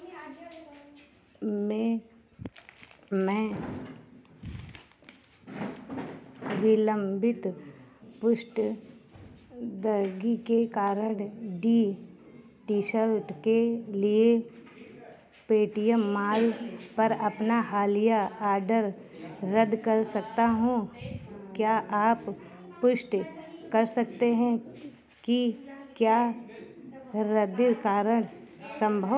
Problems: continuous background conversations